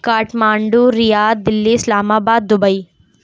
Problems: none marked